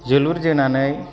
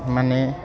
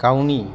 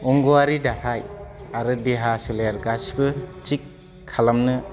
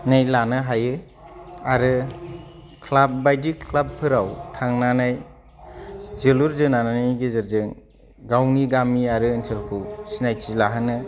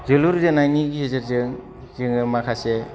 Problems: low volume